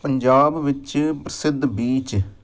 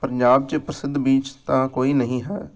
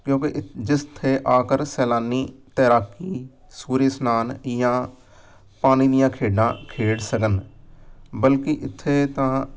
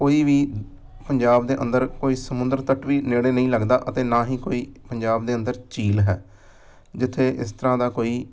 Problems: background sounds at intervals